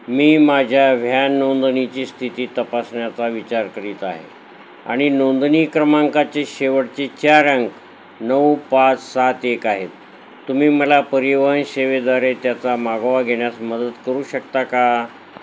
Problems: constant background noise